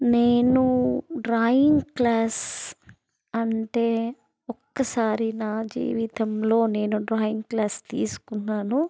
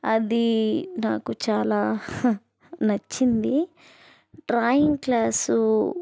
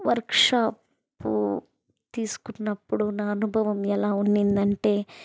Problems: none marked